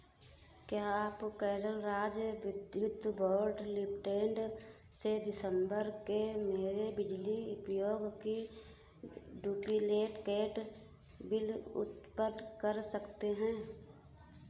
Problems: background sounds at intervals